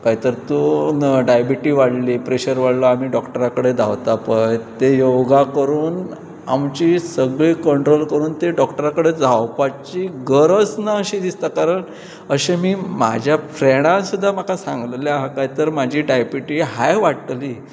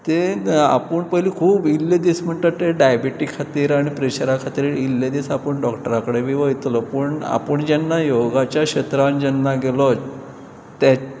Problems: constant background noise, background conversations at intervals